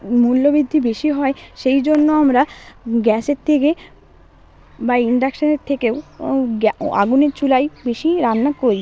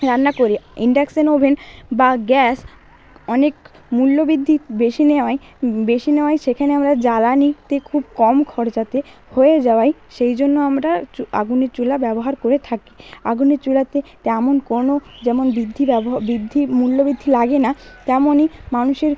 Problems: constant background noise, background conversations at intervals